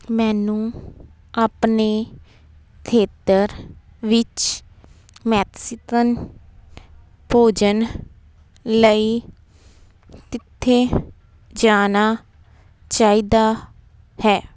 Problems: background sounds at intervals